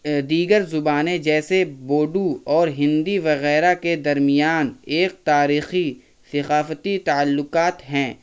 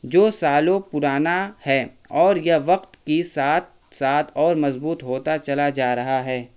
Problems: constant background noise